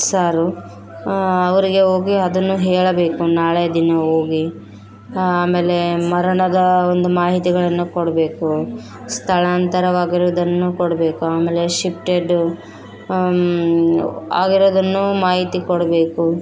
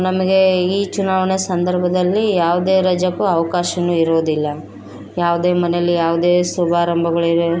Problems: background sounds at intervals